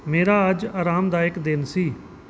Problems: background sounds at intervals